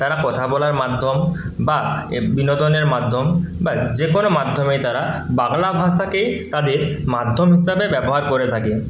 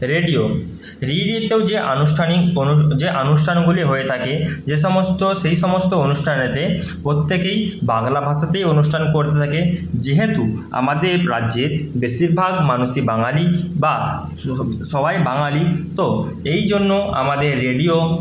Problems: constant background noise